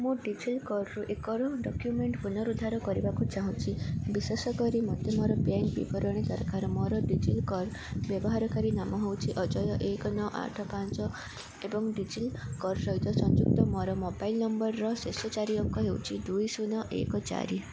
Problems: constant background noise, continuous background conversations